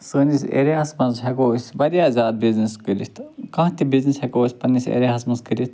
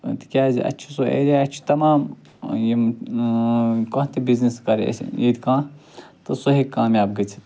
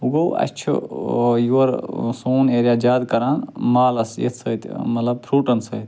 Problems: none marked